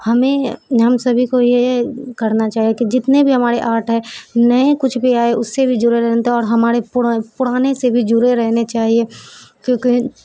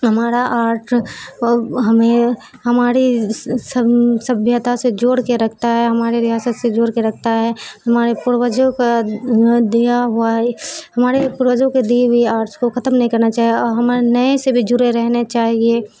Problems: background sounds at intervals, background conversations at intervals